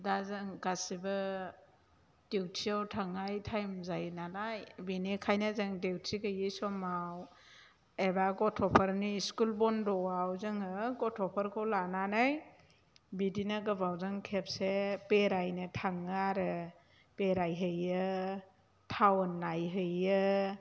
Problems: low volume